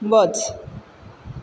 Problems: constant background noise